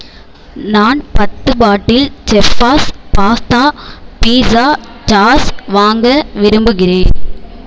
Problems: background sounds at intervals